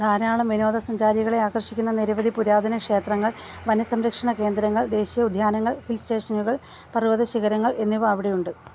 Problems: none marked